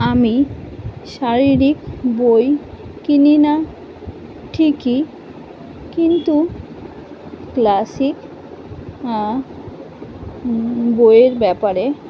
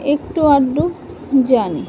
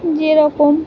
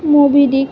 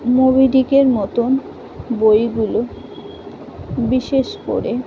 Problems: constant background noise